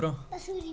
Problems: background sounds at intervals, background conversations at intervals